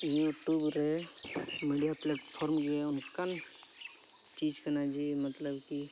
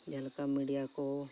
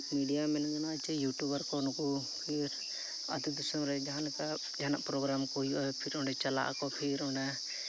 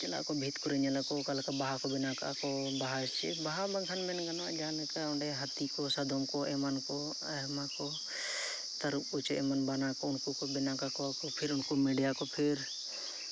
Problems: background sounds at intervals